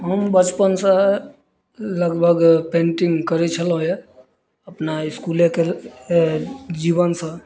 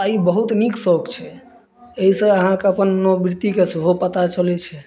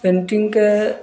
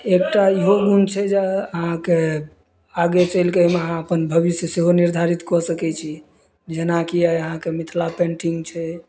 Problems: none marked